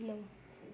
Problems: none marked